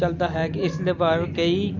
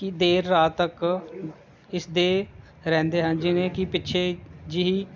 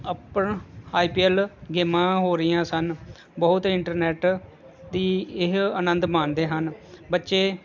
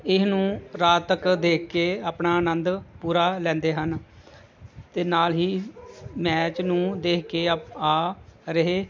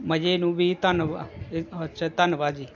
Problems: none marked